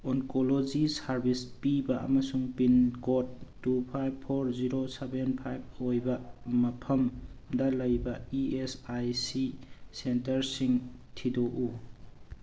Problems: none marked